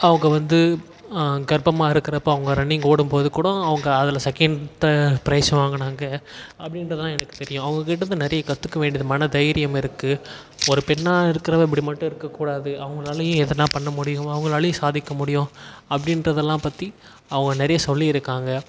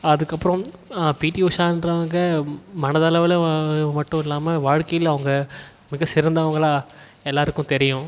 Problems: background sounds at intervals